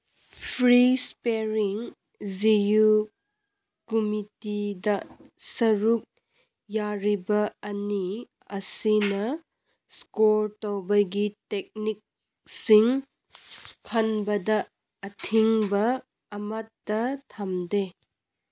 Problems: none marked